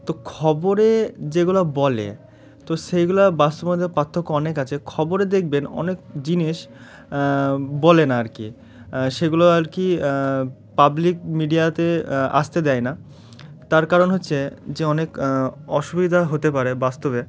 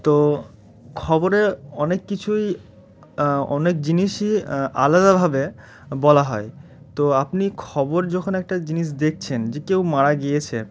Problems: constant background noise